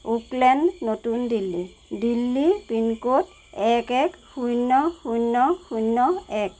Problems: constant background noise